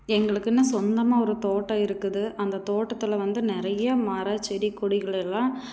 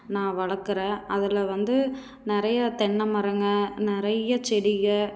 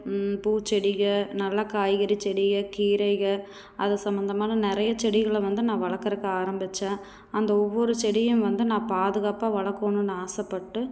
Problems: none marked